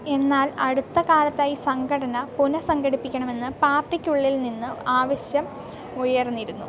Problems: constant background noise